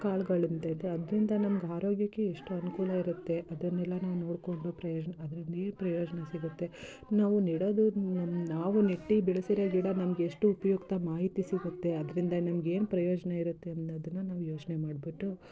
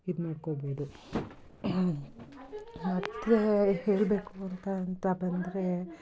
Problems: continuous background conversations